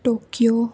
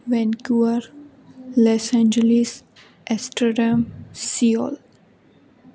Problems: constant background noise